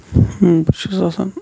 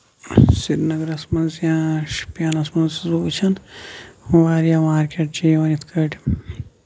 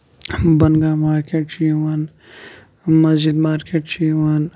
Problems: background sounds at intervals